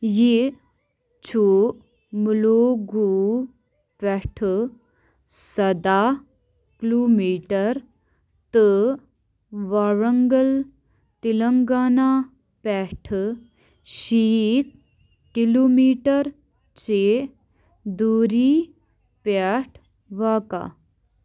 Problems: background sounds at intervals